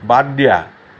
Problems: constant background noise